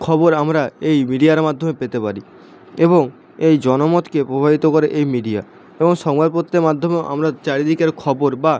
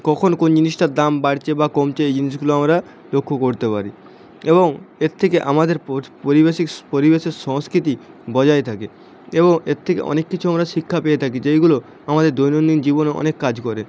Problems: constant background noise